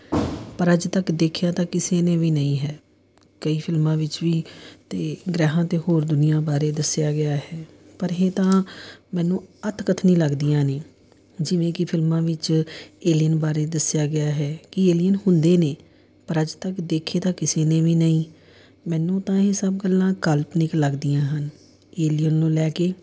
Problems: none marked